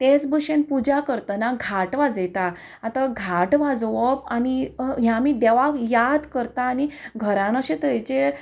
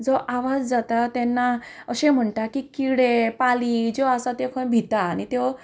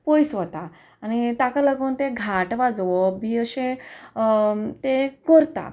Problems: none marked